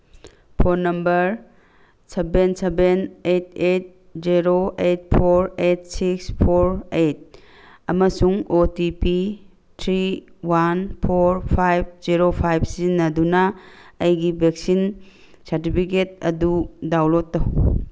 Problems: background sounds at intervals